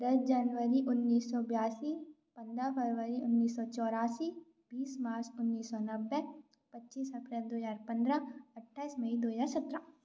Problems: none marked